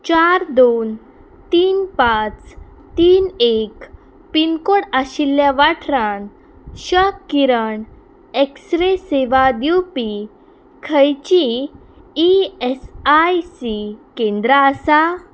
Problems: none marked